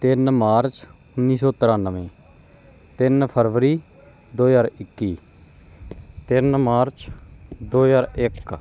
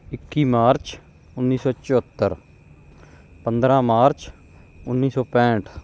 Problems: background sounds at intervals